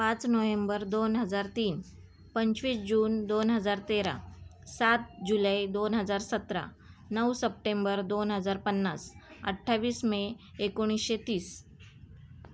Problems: none marked